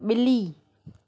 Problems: none marked